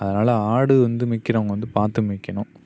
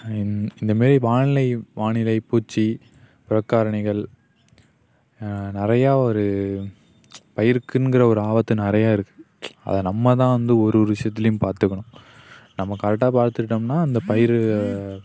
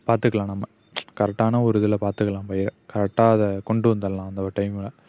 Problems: none marked